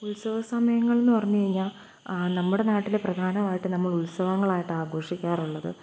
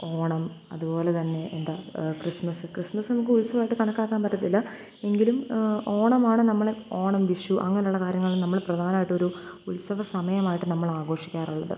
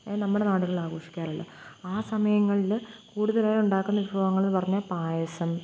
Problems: constant background noise, low volume